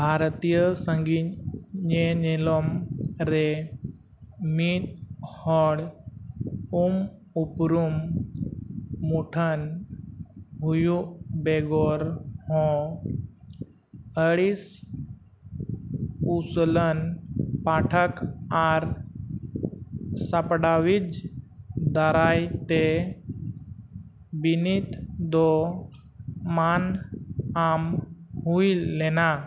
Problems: constant background noise